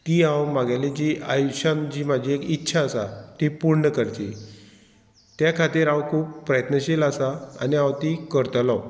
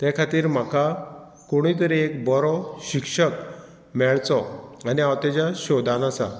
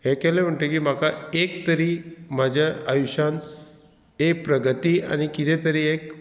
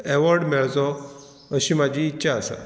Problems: background sounds at intervals